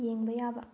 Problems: low volume